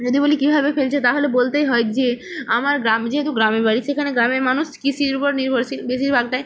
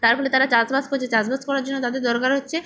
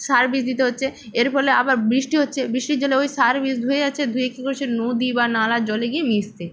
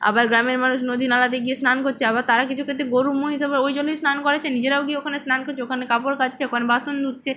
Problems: none marked